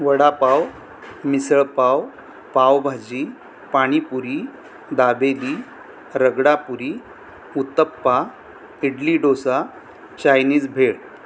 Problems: constant background noise